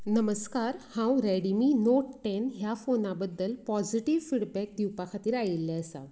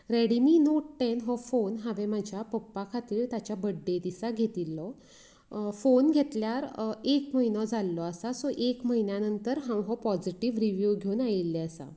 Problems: none marked